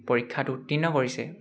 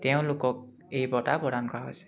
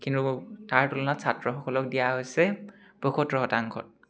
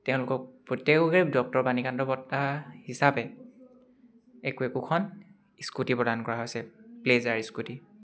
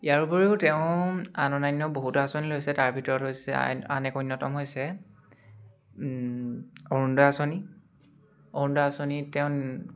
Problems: none marked